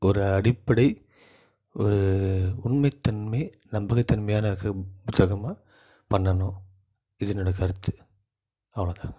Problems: low volume